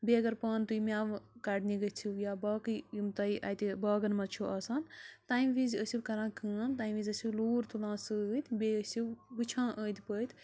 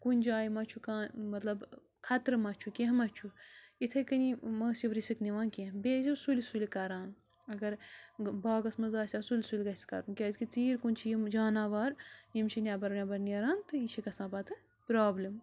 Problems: low volume